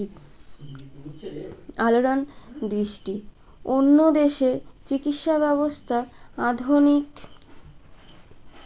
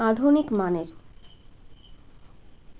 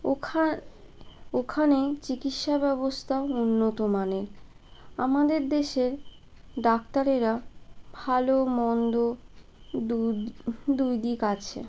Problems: constant background noise, background conversations at intervals